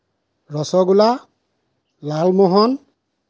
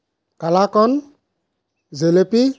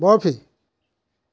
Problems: none marked